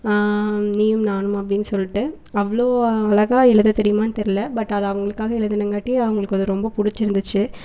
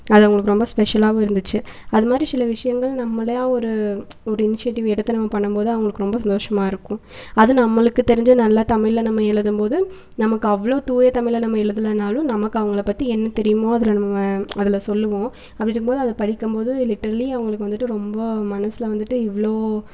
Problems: none marked